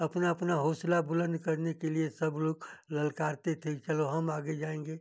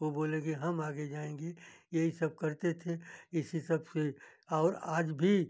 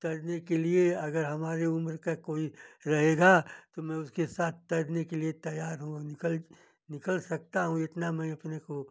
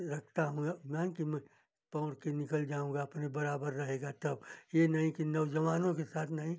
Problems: none marked